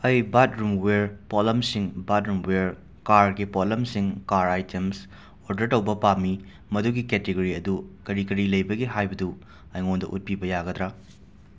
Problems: background sounds at intervals